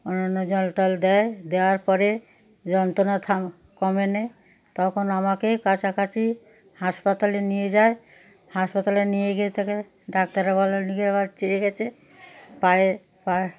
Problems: background sounds at intervals, background conversations at intervals